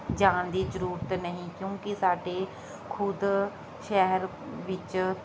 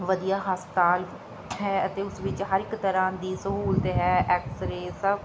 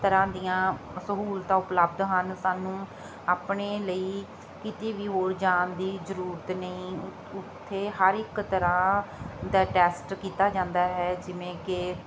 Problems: constant background noise